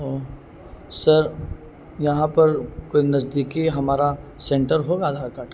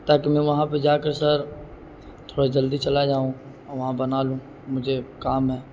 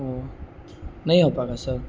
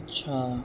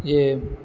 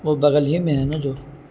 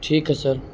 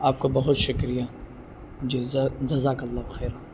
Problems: constant background noise